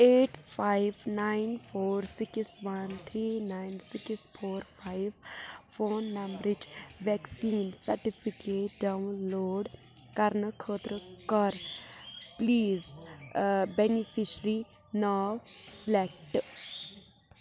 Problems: constant background noise, background conversations at intervals